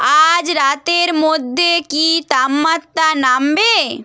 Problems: none marked